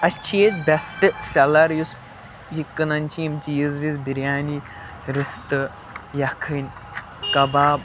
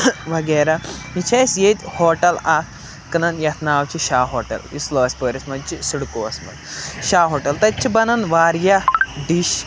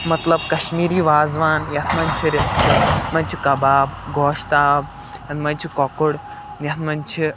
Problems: constant background noise